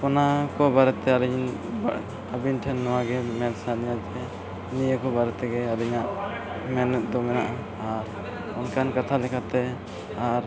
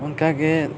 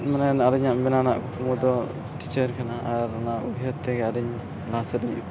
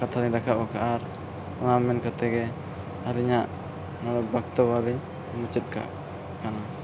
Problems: constant background noise